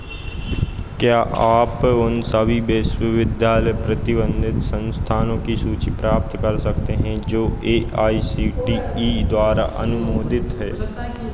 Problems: none marked